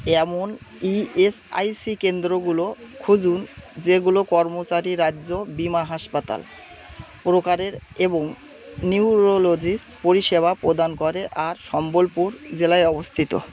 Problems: constant background noise